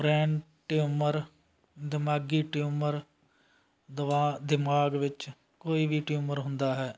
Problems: constant background noise